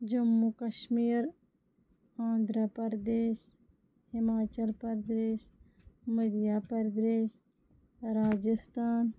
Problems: low volume